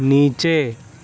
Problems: none marked